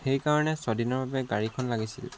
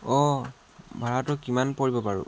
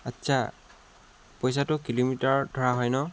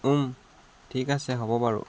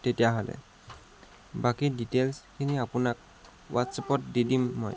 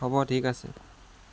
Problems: constant background noise